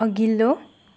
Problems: none marked